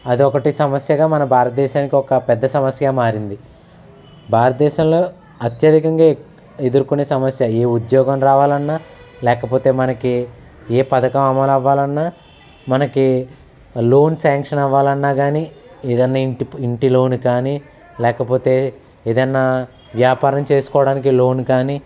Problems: none marked